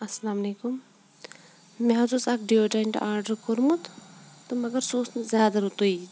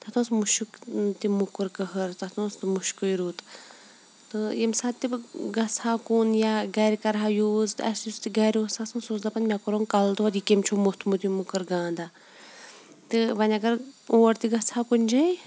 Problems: background sounds at intervals